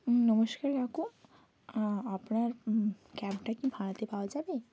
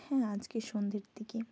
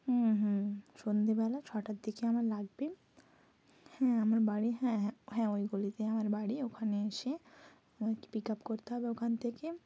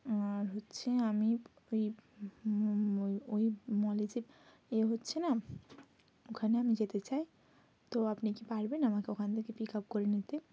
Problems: constant background noise